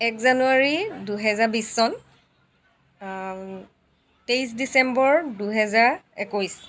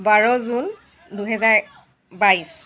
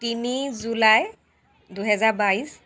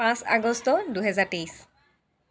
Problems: background conversations at intervals